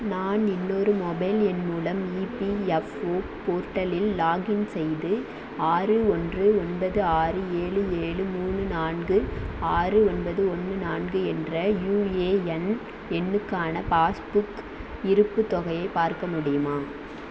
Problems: constant background noise